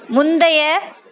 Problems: constant background noise